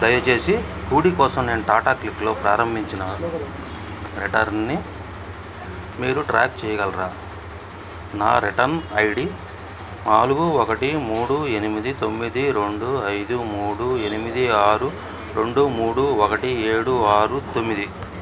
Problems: background sounds at intervals